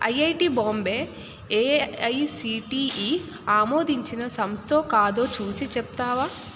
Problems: constant background noise